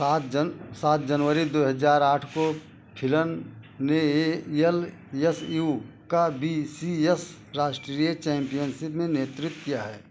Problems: constant background noise